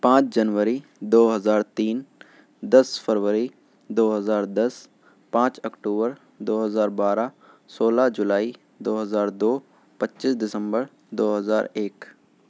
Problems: none marked